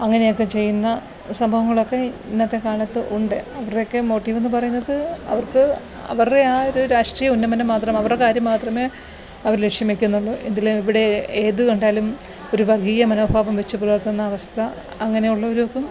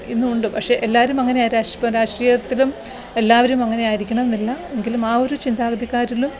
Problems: background sounds at intervals